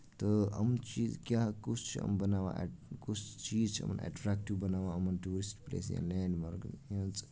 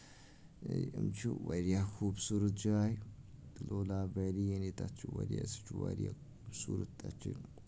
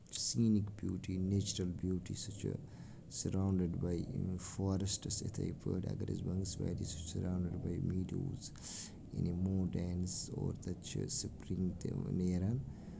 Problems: background sounds at intervals, low volume